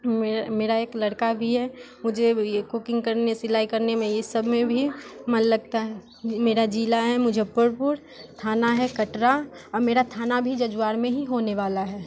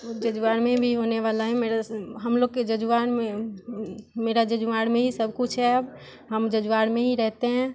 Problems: constant background noise, background conversations at intervals